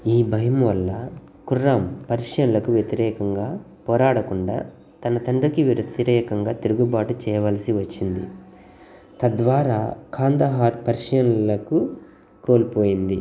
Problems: none marked